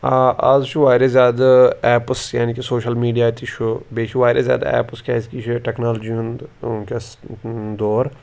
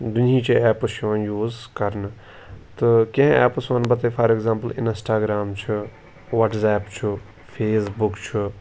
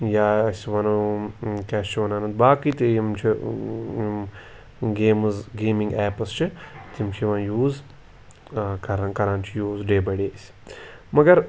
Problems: background sounds at intervals